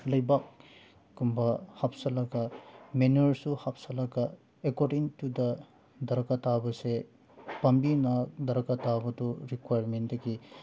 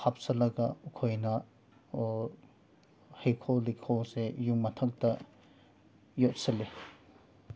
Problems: background sounds at intervals